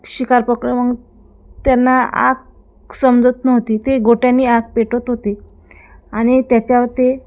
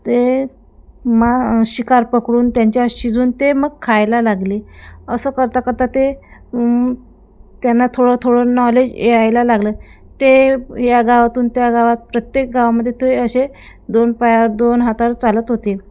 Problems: none marked